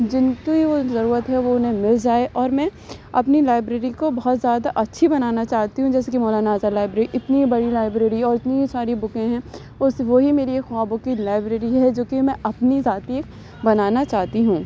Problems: none marked